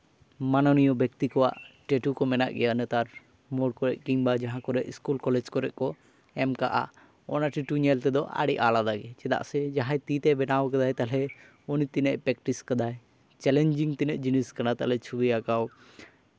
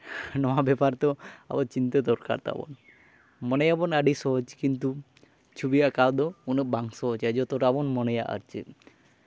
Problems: none marked